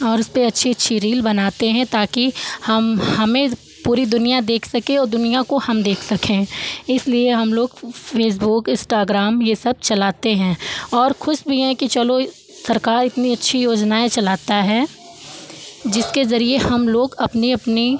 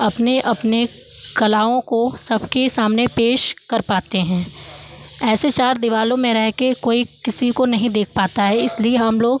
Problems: background sounds at intervals